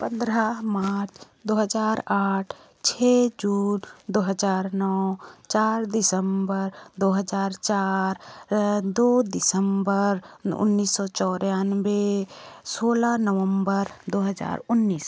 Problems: constant background noise